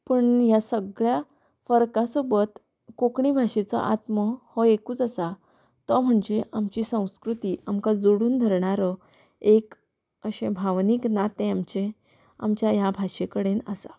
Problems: background sounds at intervals